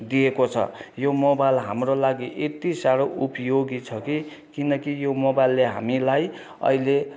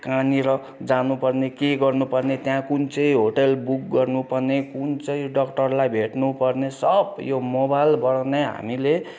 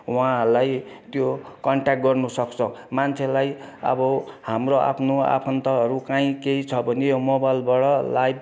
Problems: constant background noise